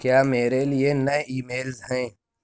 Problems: none marked